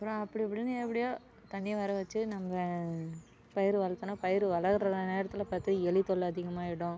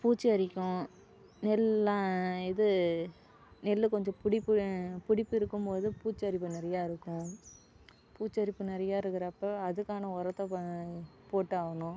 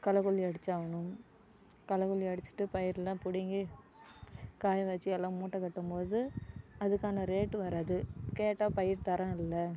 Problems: none marked